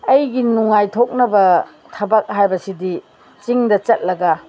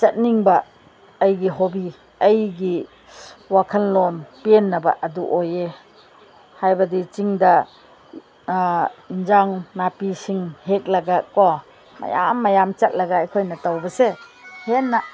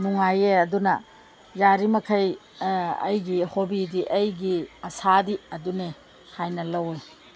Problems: none marked